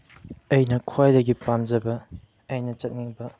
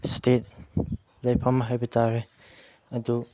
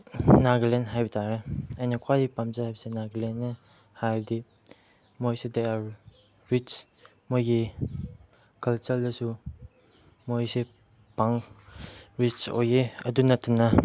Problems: background sounds at intervals